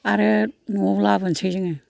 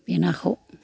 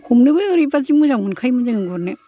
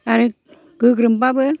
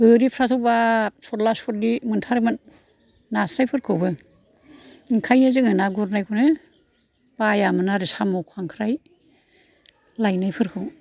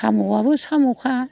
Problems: low volume